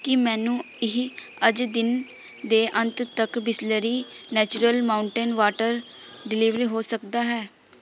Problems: constant background noise, background conversations at intervals